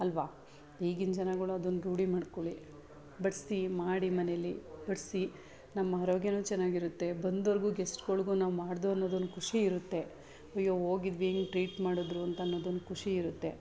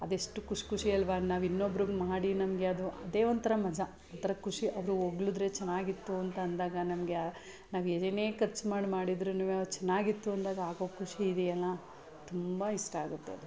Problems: background sounds at intervals